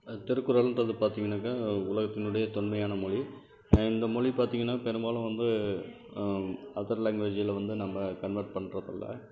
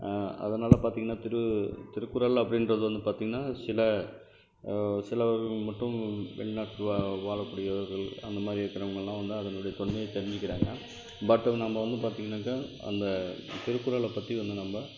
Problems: constant background noise